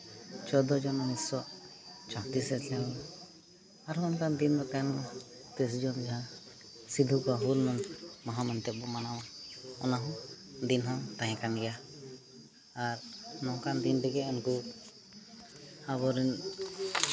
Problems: constant background noise